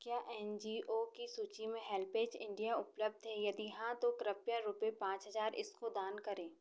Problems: none marked